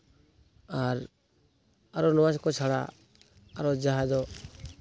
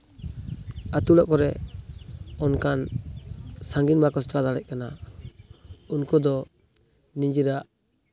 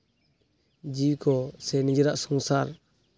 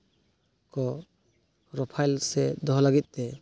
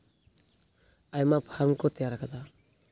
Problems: constant background noise